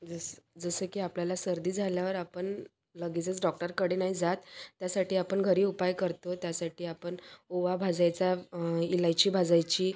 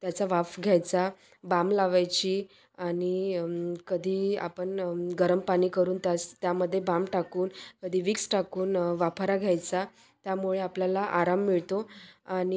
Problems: constant background noise, background conversations at intervals, echo